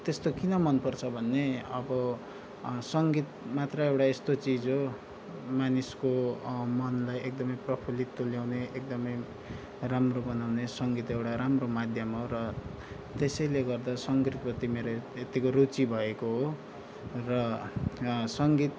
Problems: background sounds at intervals